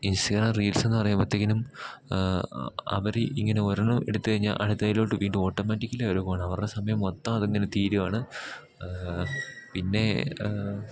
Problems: background sounds at intervals